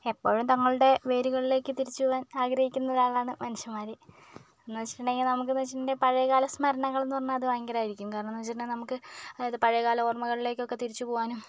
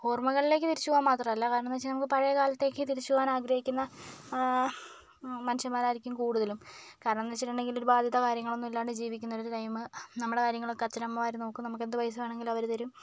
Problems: none marked